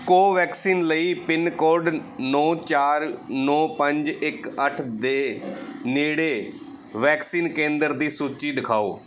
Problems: background sounds at intervals